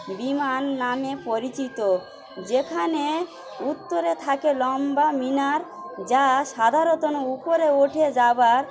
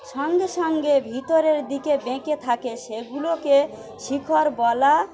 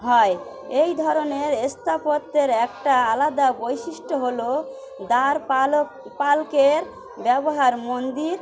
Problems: constant background noise, continuous background conversations